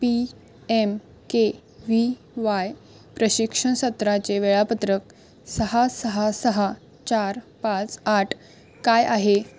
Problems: none marked